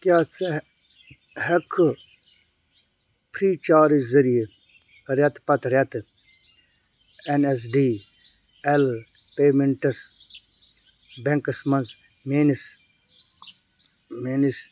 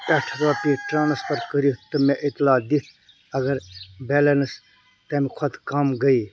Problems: background sounds at intervals